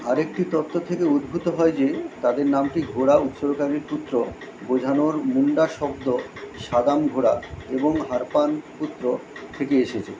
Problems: constant background noise